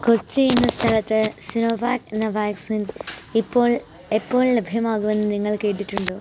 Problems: background sounds at intervals